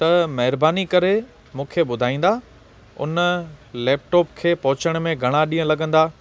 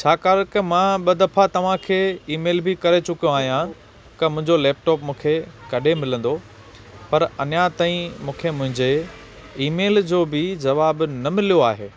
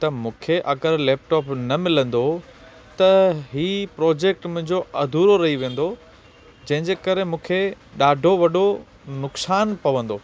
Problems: constant background noise